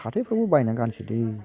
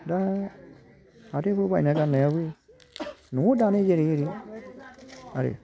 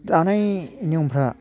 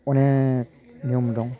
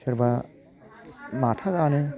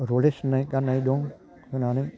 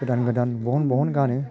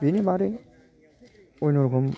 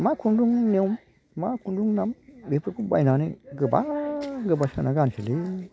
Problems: constant background noise